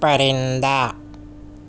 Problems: none marked